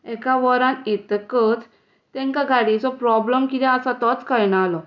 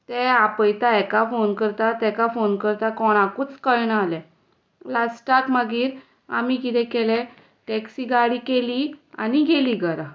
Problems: none marked